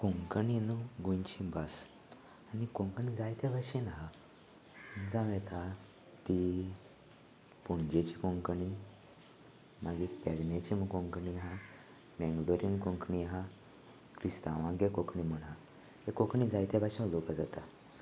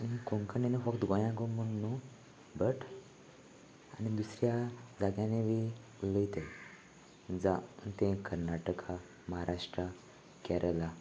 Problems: none marked